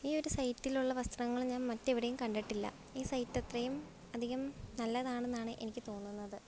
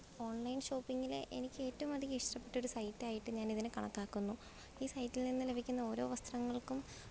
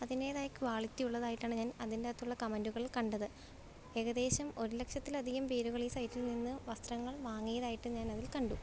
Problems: background sounds at intervals